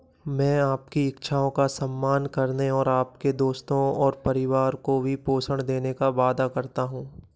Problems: background sounds at intervals